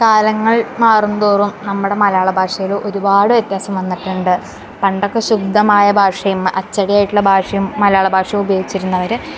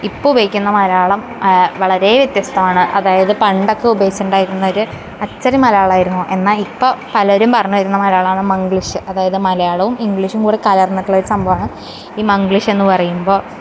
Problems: background sounds at intervals, background conversations at intervals